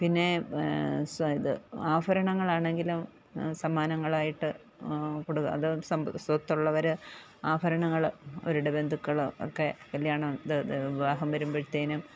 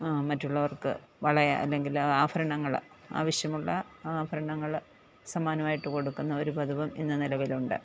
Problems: background conversations at intervals